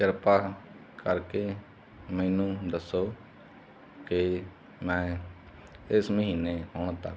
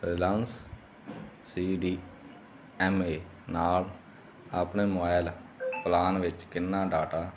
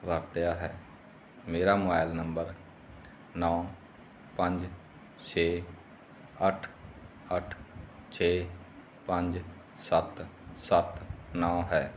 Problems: constant background noise